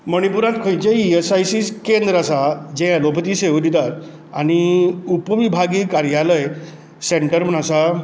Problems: none marked